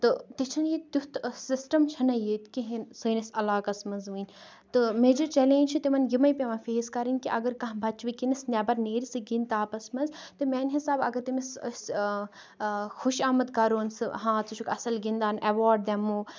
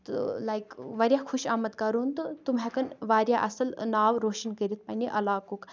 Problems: continuous background conversations